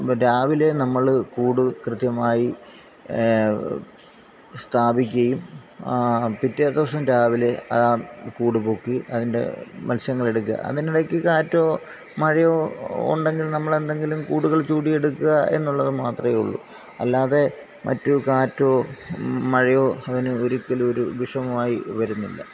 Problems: background sounds at intervals